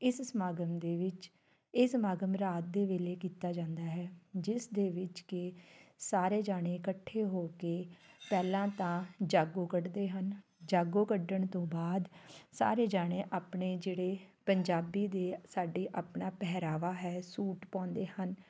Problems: background sounds at intervals